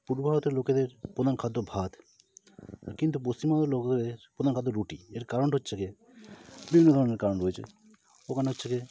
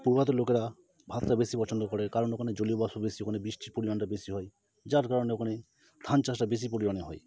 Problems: constant background noise